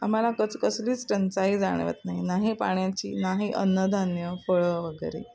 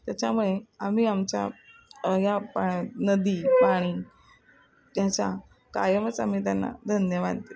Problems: none marked